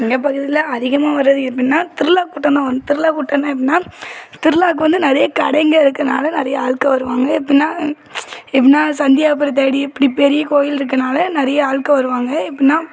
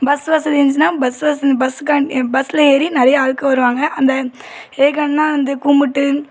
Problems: background sounds at intervals, background conversations at intervals